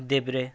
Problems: constant background noise